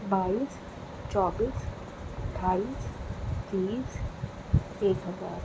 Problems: constant background noise